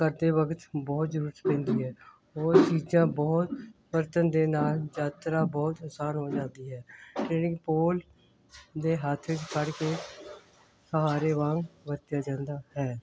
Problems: constant background noise